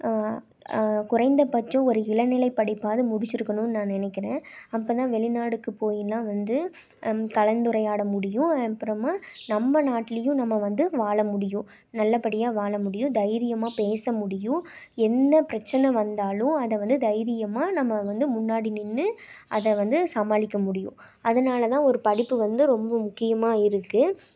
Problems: none marked